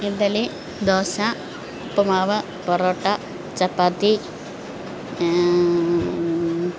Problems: none marked